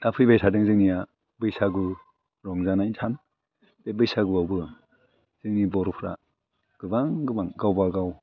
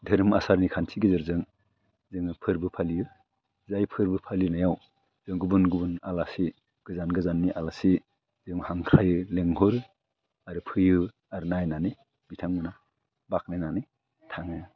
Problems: constant background noise